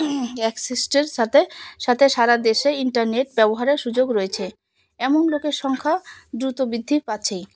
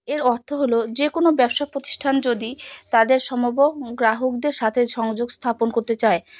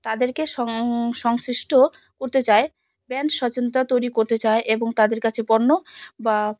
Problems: constant background noise